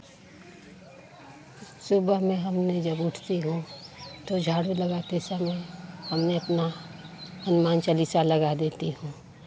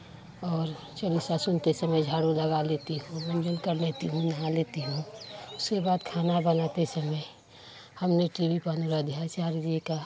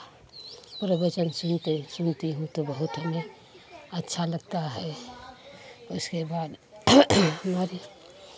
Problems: none marked